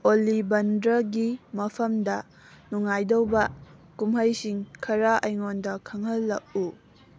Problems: background sounds at intervals